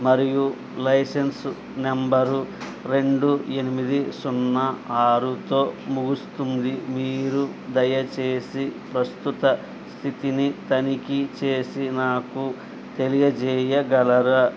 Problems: constant background noise